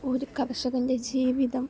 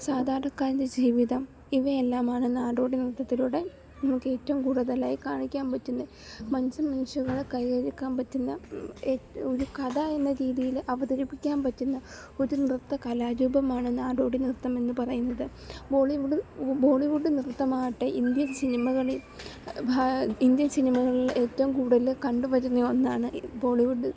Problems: background sounds at intervals, low volume